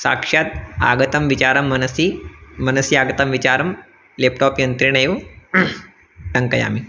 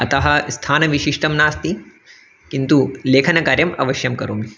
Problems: constant background noise